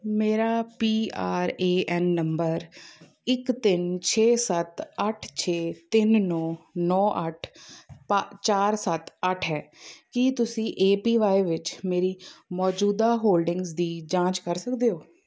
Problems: background conversations at intervals